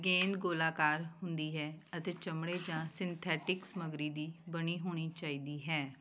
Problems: background sounds at intervals